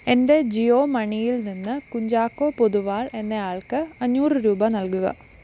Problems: constant background noise